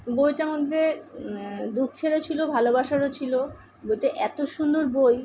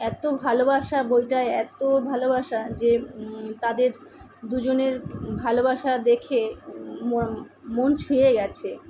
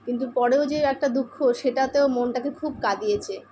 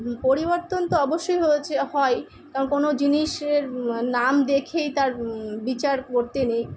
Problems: none marked